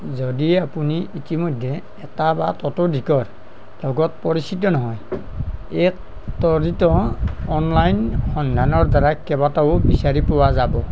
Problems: none marked